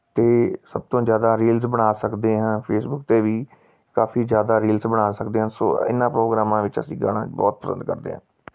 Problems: background sounds at intervals